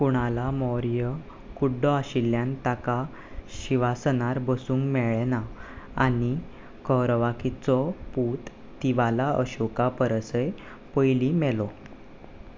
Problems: background sounds at intervals